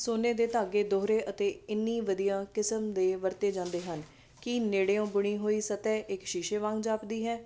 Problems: constant background noise